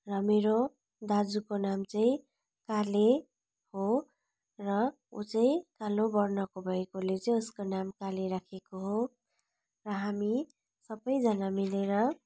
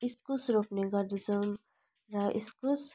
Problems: none marked